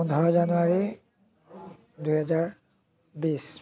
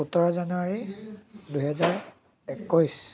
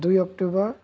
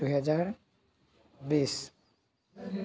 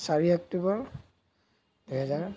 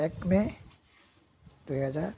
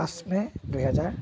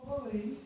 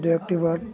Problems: continuous background conversations